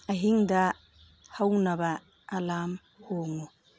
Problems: background conversations at intervals, low volume